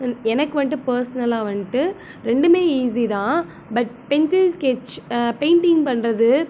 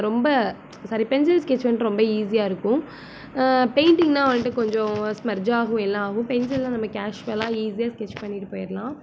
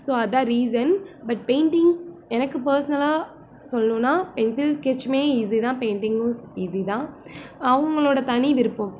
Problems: constant background noise